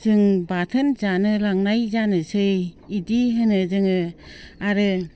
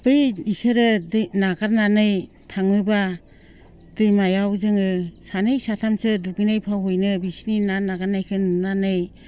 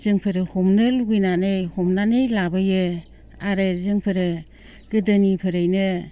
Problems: constant background noise